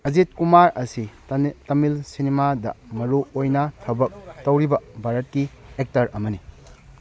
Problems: background sounds at intervals, background conversations at intervals